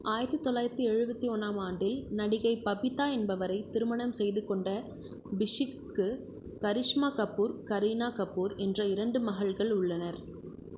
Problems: constant background noise, low volume